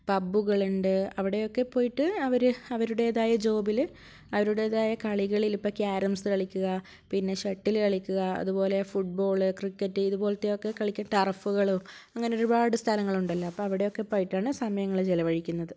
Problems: none marked